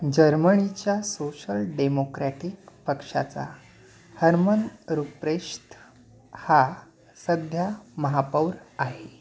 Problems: none marked